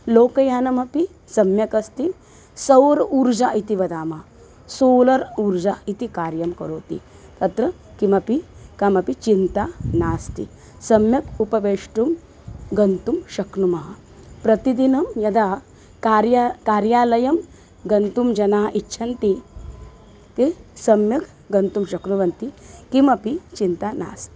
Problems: constant background noise